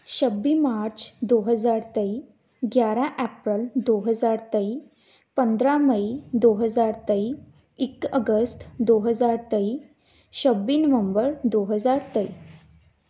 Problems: background sounds at intervals